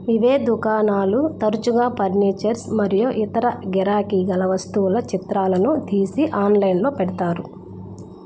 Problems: constant background noise